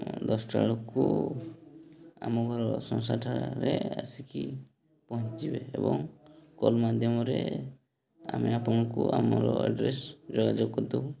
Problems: background sounds at intervals, background conversations at intervals